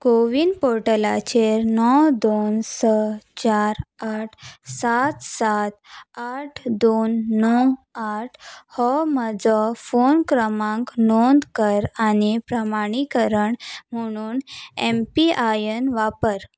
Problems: none marked